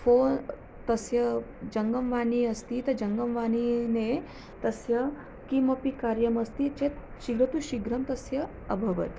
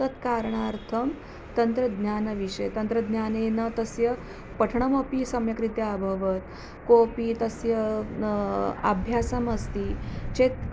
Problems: none marked